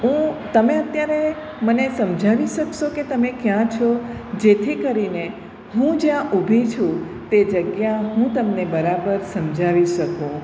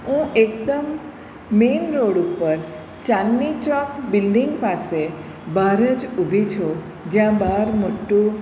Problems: none marked